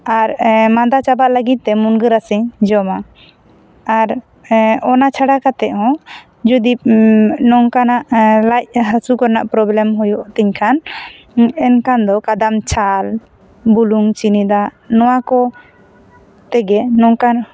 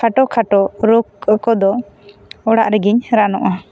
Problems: background sounds at intervals